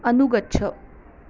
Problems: constant background noise